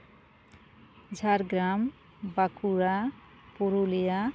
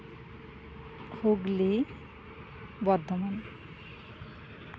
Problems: constant background noise